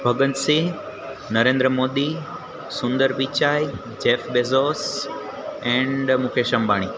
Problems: constant background noise